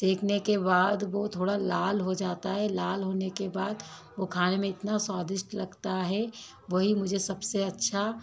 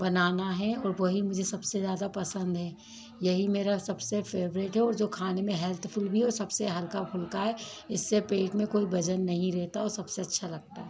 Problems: background conversations at intervals